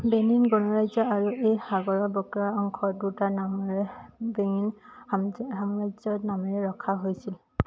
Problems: none marked